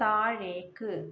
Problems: none marked